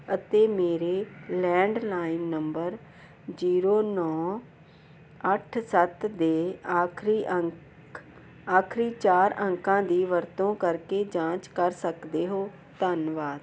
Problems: none marked